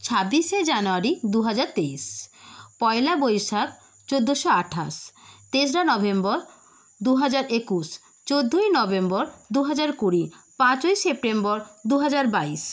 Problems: none marked